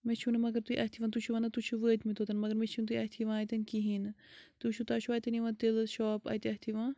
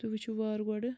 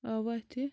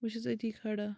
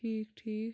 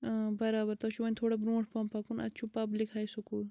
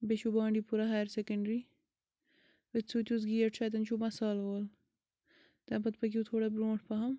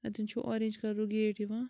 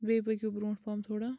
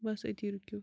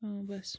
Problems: background sounds at intervals